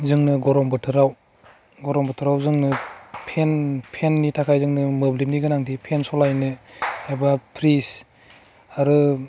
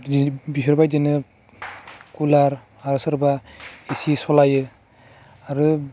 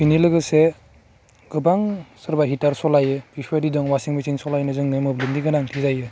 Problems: constant background noise